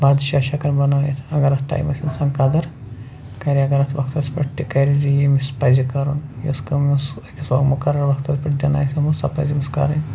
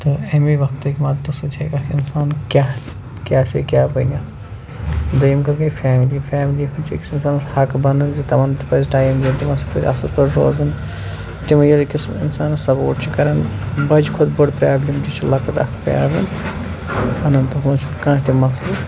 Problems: constant background noise